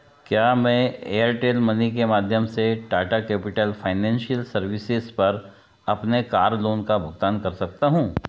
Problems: background sounds at intervals